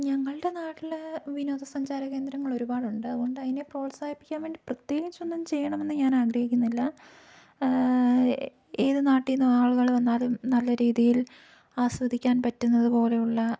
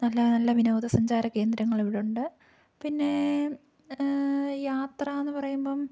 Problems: low volume